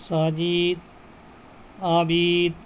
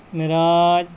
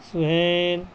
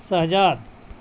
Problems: constant background noise